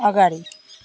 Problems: constant background noise